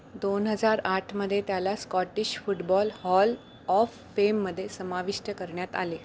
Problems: none marked